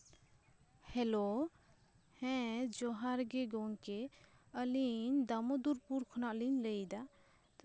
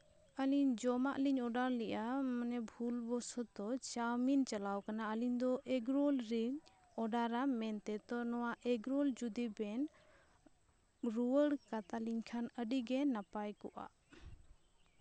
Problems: none marked